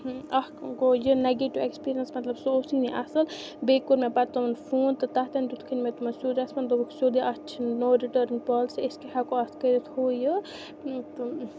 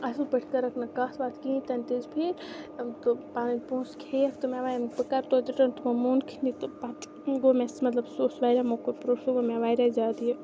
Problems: constant background noise